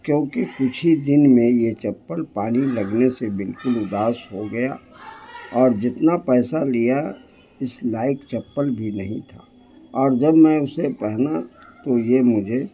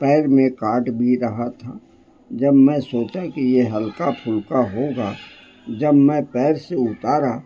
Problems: background sounds at intervals, low volume